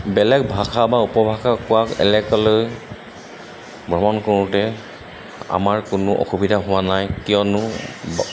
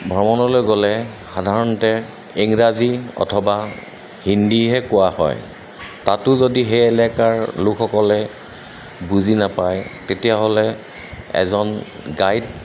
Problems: constant background noise